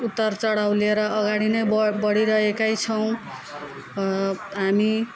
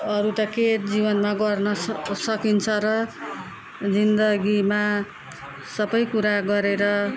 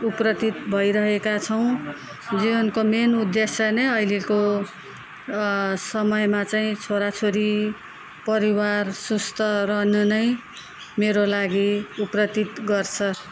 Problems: continuous background conversations